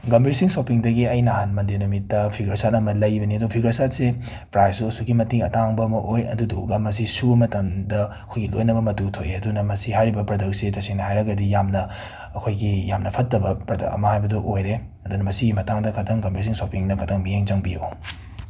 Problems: none marked